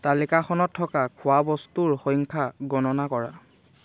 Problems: none marked